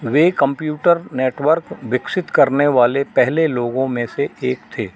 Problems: none marked